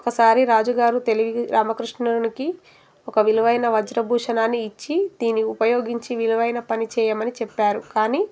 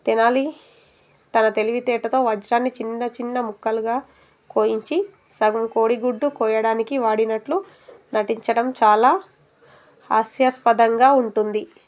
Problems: background sounds at intervals